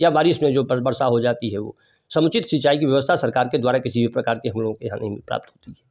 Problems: none marked